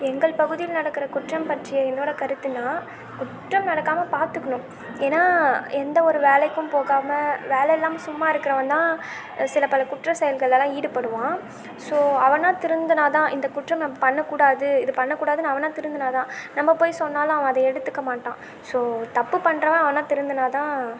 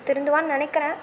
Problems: background sounds at intervals, background conversations at intervals